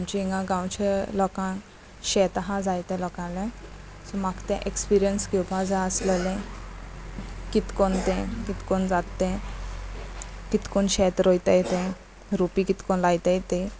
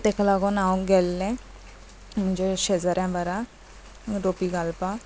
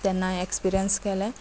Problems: none marked